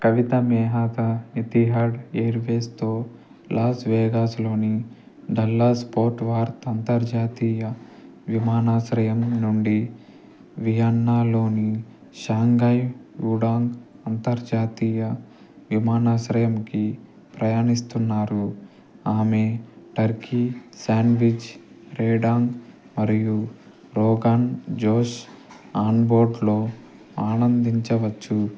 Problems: none marked